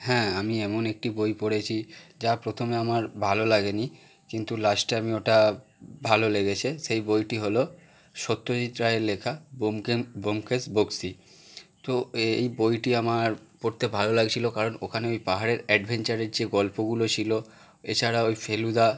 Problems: background sounds at intervals